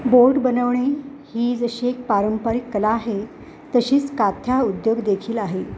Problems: background sounds at intervals